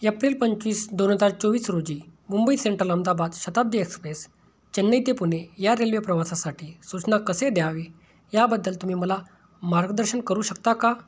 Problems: none marked